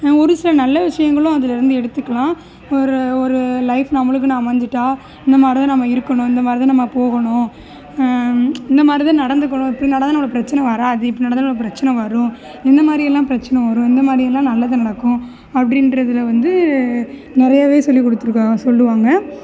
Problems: background sounds at intervals